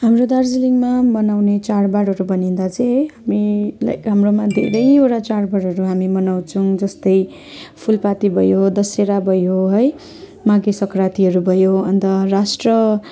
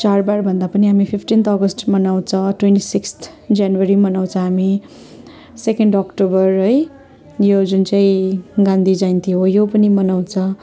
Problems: constant background noise